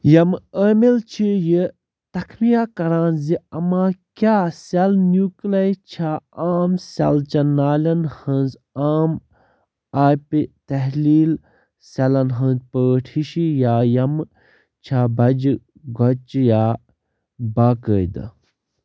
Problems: background sounds at intervals